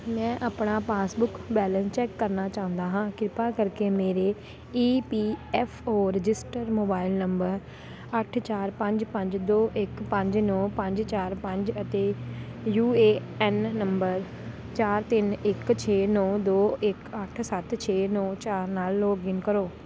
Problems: none marked